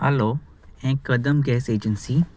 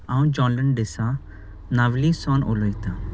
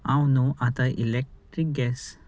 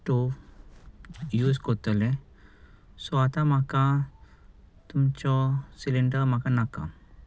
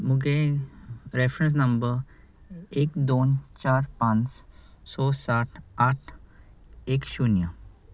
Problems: none marked